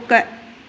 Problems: none marked